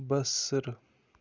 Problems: constant background noise